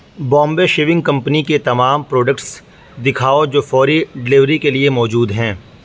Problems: background sounds at intervals